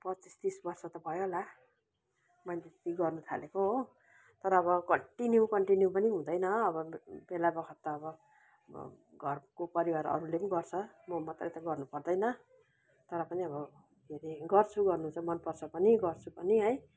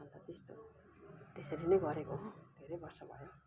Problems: none marked